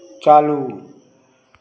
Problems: constant background noise, continuous background conversations